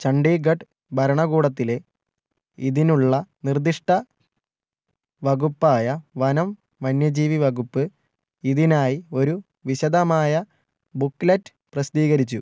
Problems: none marked